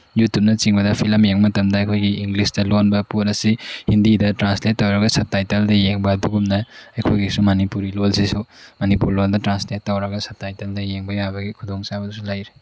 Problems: constant background noise